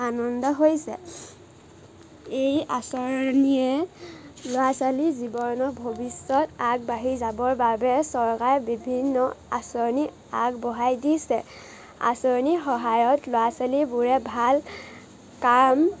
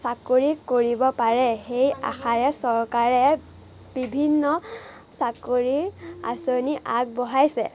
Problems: none marked